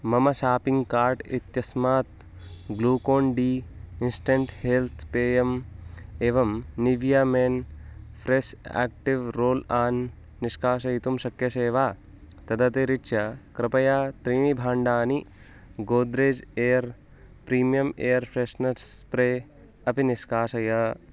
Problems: constant background noise